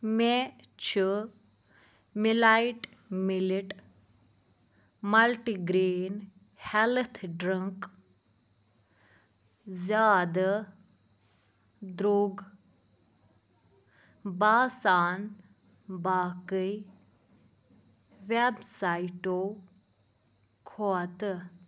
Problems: constant background noise